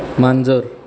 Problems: constant background noise, continuous background conversations